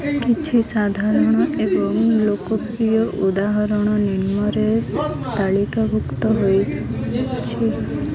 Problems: constant background noise, continuous background conversations